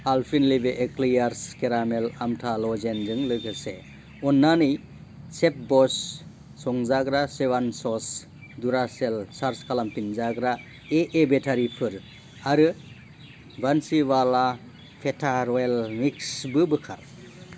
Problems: constant background noise